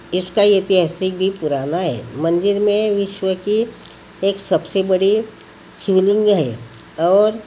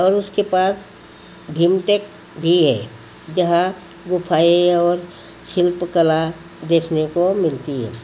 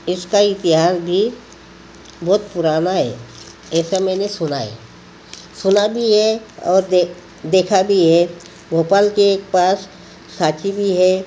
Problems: constant background noise